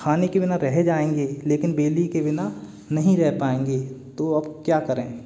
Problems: none marked